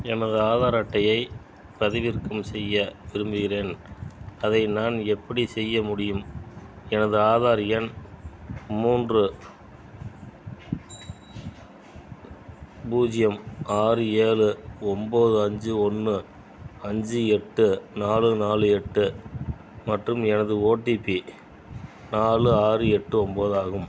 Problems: background sounds at intervals